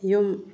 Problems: low volume